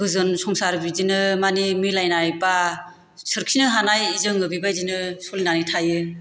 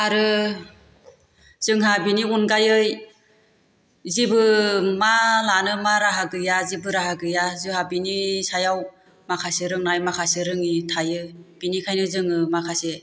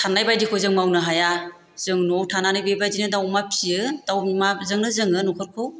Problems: constant background noise